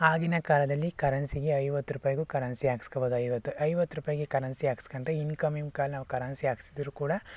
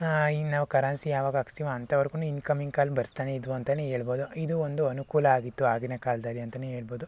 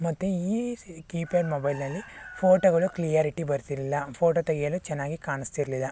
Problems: none marked